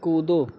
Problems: none marked